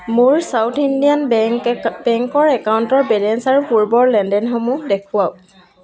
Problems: low volume